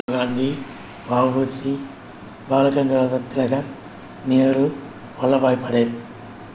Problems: constant background noise